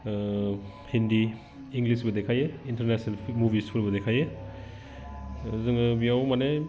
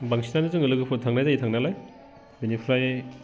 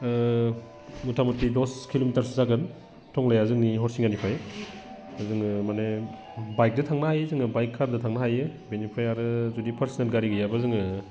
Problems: none marked